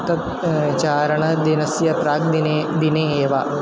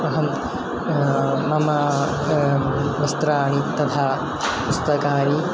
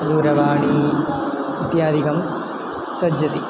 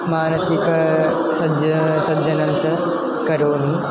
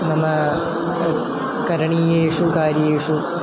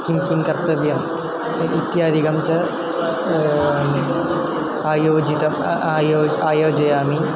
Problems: constant background noise, low volume